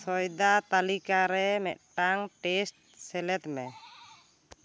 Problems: none marked